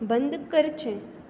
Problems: none marked